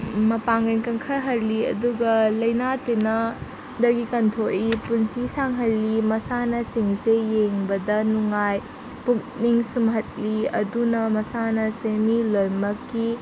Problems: constant background noise